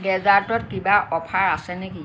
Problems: constant background noise